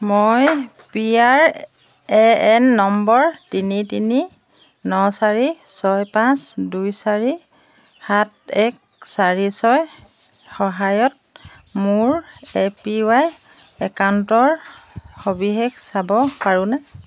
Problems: constant background noise